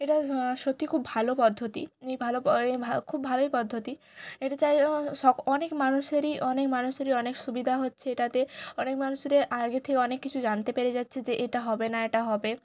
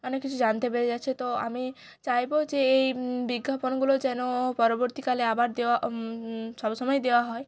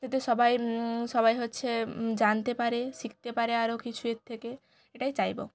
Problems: background conversations at intervals